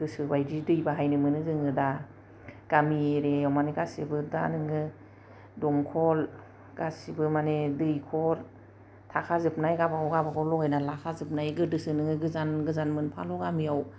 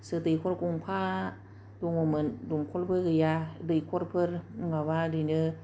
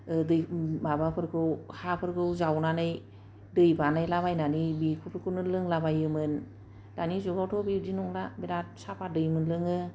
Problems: none marked